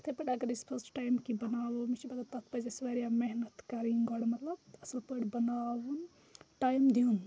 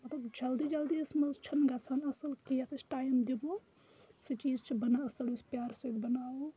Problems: constant background noise